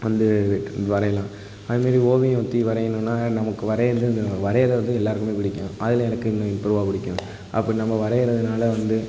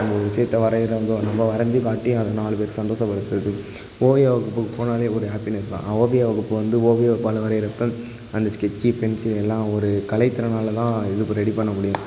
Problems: constant background noise